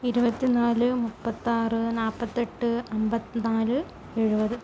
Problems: low volume